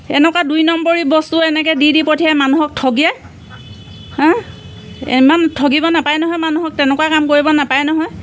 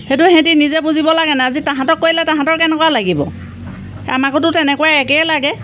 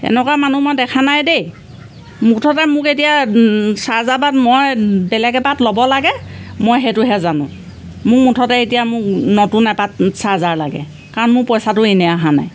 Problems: none marked